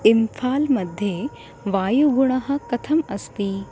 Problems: constant background noise